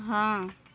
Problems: none marked